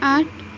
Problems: background sounds at intervals